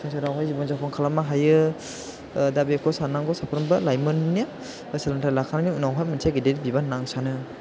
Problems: background sounds at intervals